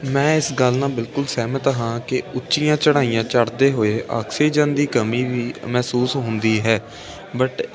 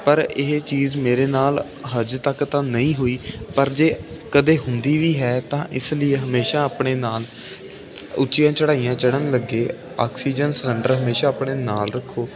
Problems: constant background noise